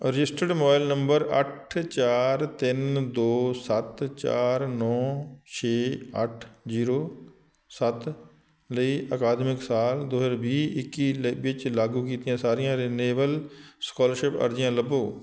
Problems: background sounds at intervals